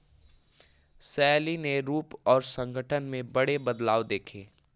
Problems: background sounds at intervals